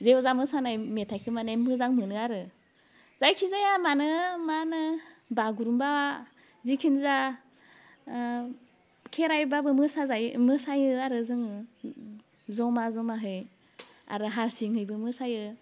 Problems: constant background noise